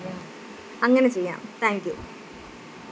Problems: constant background noise